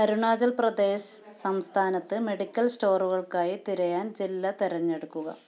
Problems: none marked